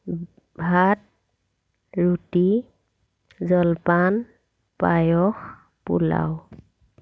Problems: none marked